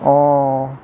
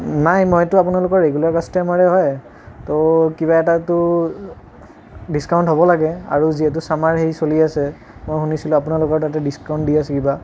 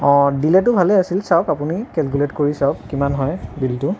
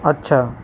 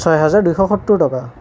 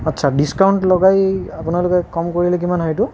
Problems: constant background noise